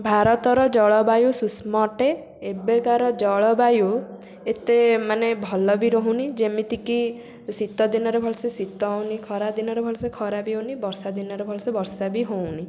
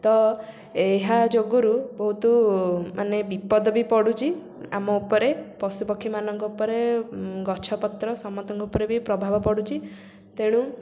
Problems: constant background noise